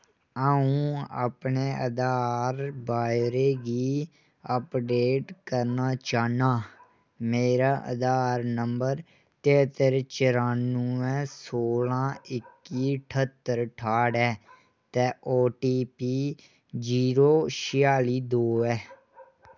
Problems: none marked